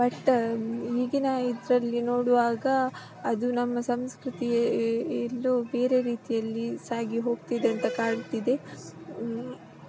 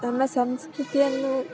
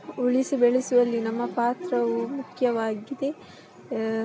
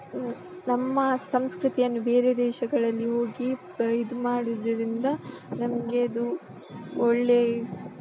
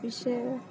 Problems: constant background noise